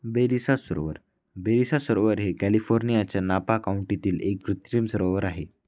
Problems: constant background noise